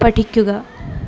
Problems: background sounds at intervals